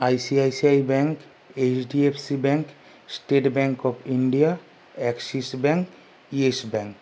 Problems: none marked